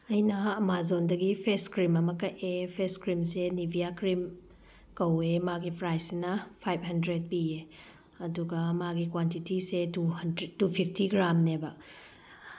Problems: background sounds at intervals